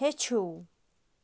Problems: background sounds at intervals